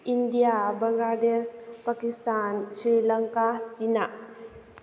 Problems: none marked